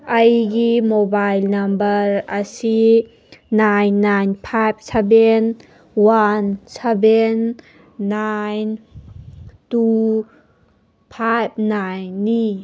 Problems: background sounds at intervals